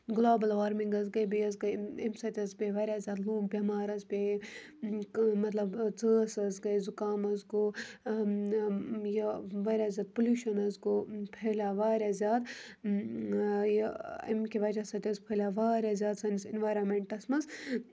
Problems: constant background noise